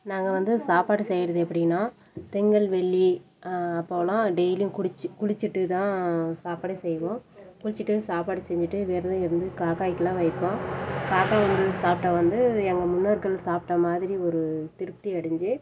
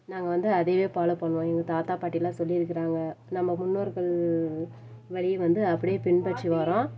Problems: background sounds at intervals